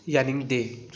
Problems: none marked